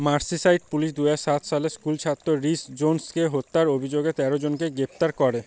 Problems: constant background noise